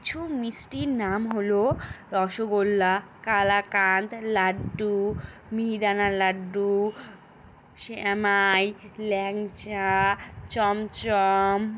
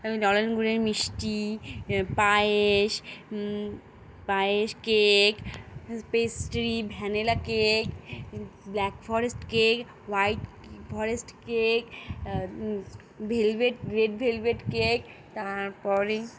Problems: constant background noise